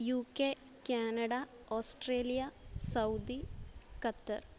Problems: none marked